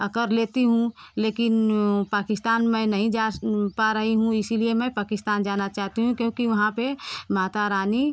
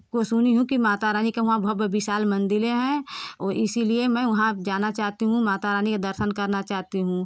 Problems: background sounds at intervals